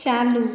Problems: none marked